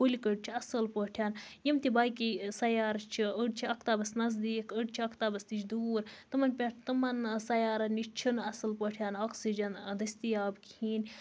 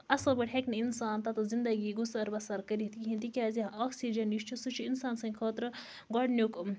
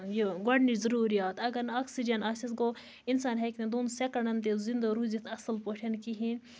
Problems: none marked